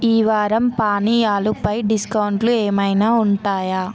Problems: constant background noise, continuous background conversations